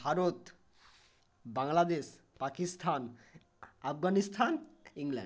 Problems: none marked